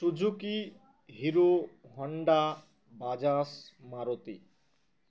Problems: background sounds at intervals